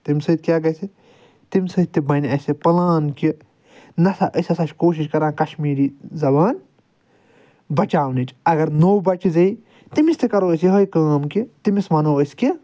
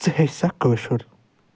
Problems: none marked